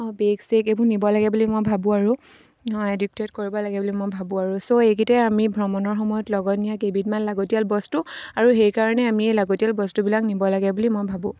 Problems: none marked